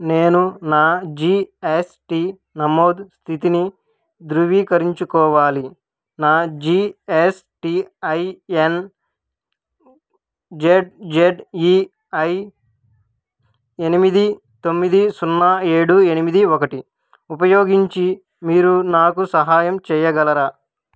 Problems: none marked